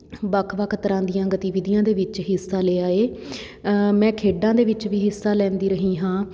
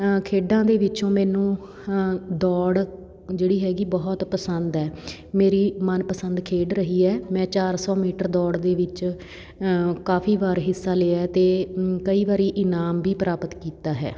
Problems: none marked